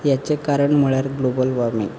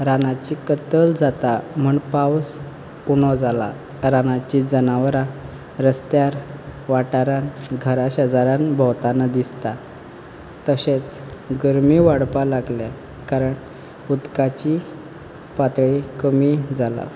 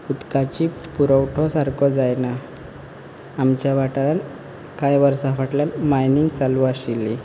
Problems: background sounds at intervals